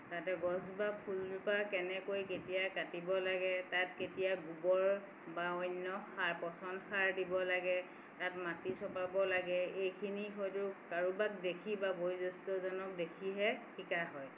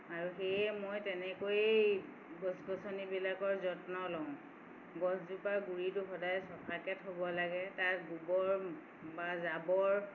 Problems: none marked